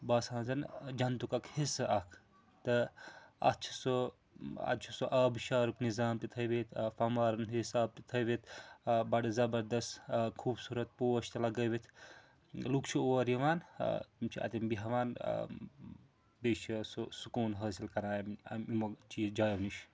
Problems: background sounds at intervals